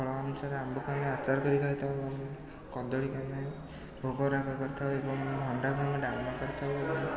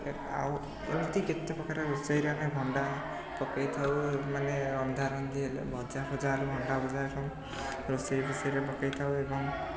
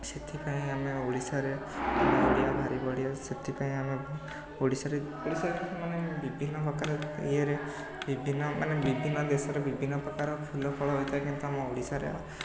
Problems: constant background noise, continuous background conversations